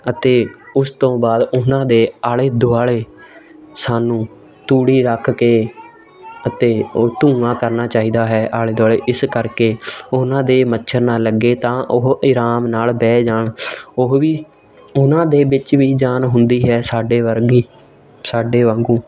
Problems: continuous background conversations